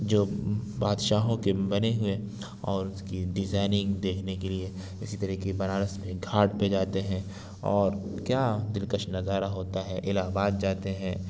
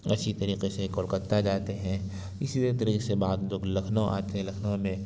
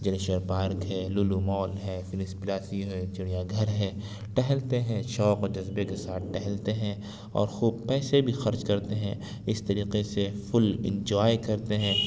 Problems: none marked